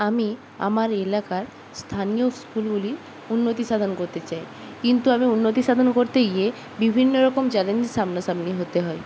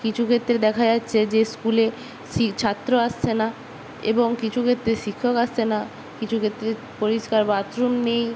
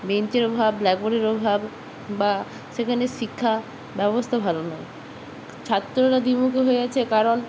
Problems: background sounds at intervals